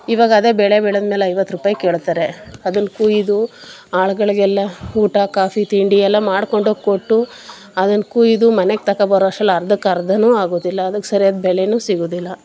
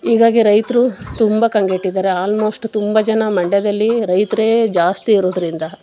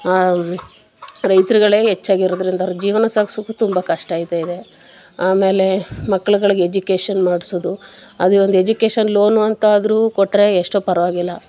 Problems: background sounds at intervals